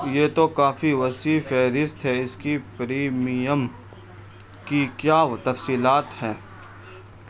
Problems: constant background noise